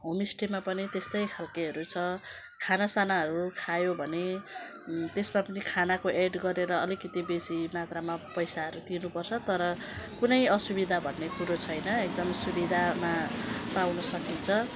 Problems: constant background noise